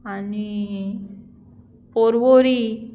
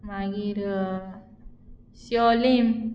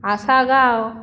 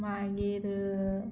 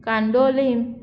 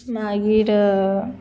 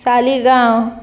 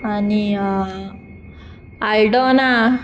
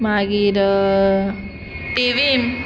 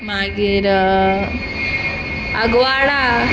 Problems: background sounds at intervals